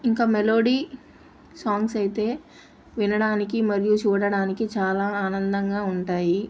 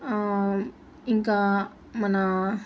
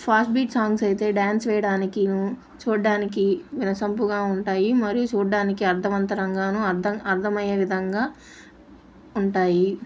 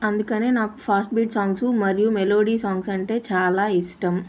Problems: constant background noise